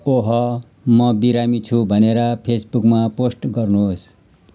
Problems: none marked